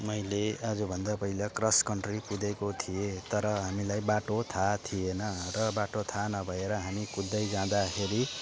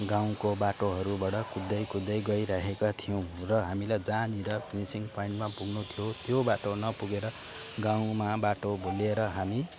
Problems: background conversations at intervals